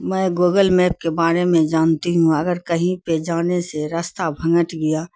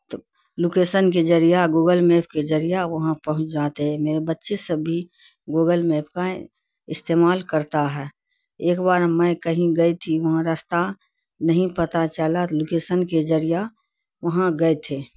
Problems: constant background noise